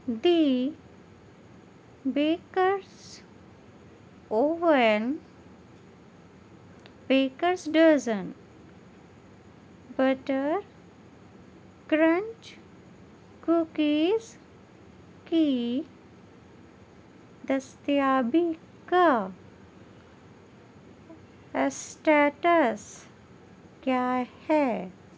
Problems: none marked